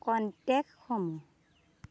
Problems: none marked